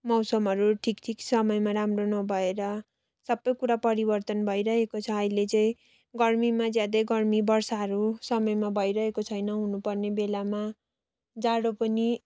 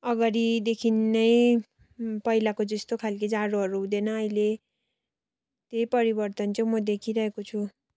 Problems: constant background noise